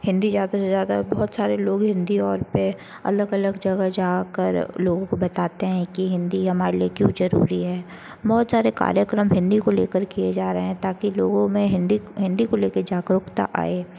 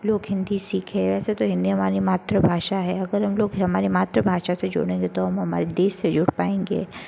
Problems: constant background noise